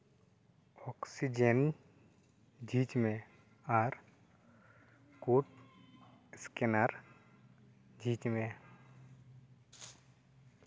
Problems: none marked